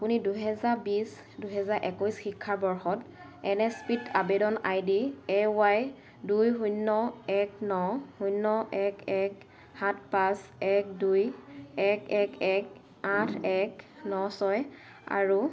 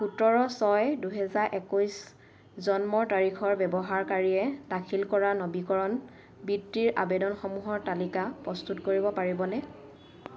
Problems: low volume